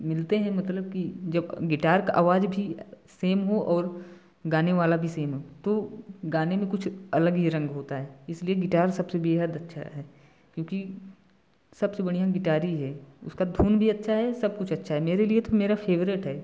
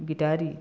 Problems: background sounds at intervals